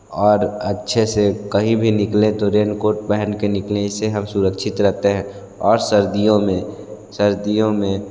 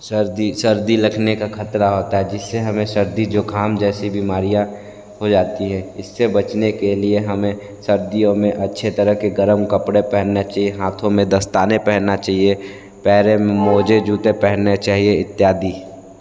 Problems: background sounds at intervals